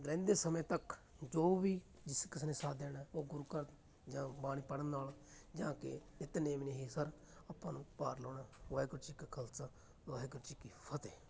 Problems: constant background noise